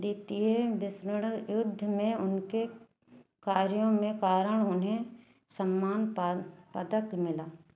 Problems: constant background noise